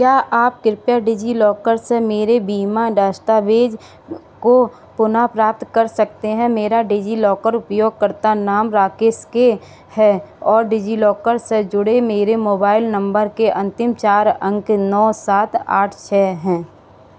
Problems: none marked